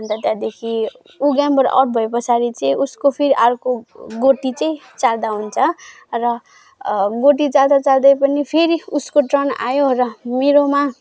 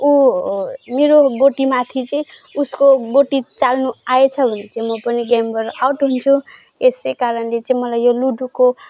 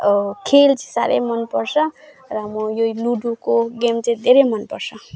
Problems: background sounds at intervals